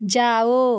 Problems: none marked